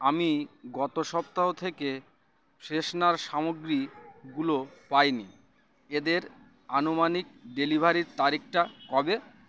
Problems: constant background noise